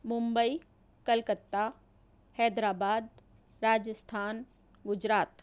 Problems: none marked